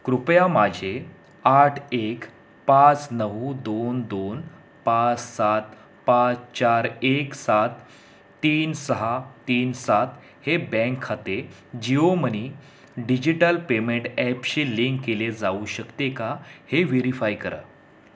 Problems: constant background noise